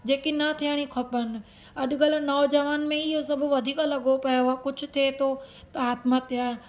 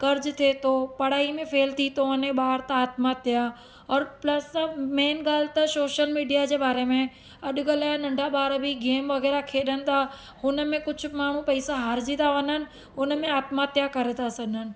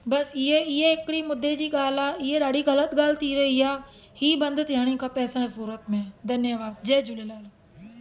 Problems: constant background noise